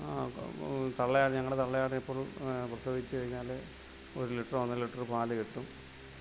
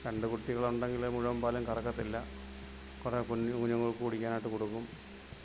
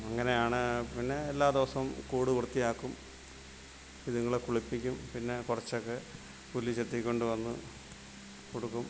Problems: none marked